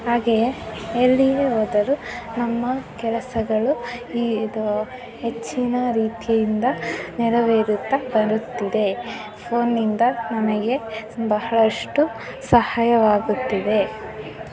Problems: constant background noise, continuous background conversations